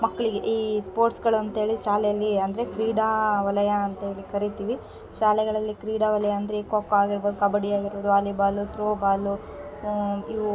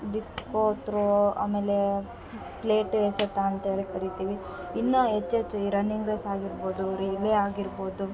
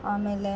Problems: background sounds at intervals